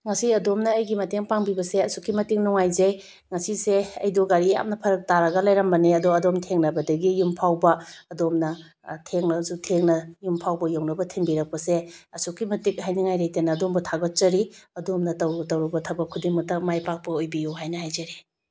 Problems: none marked